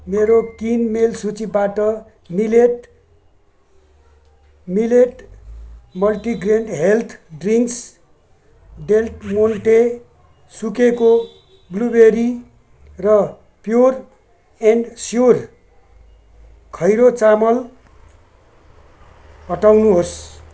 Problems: background sounds at intervals